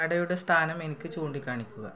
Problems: low volume